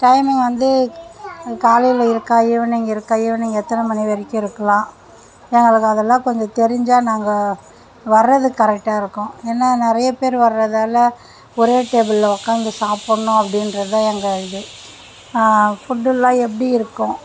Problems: background sounds at intervals